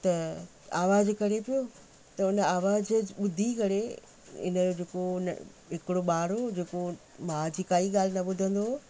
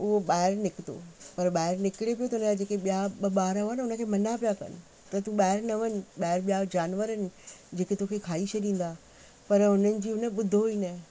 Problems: constant background noise